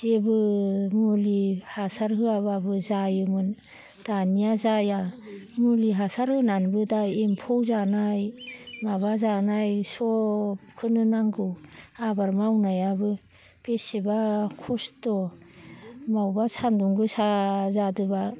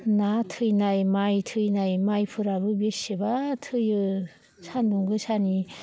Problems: low volume